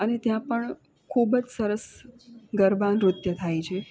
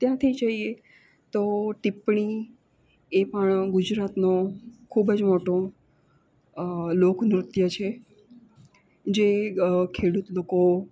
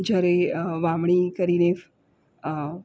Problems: constant background noise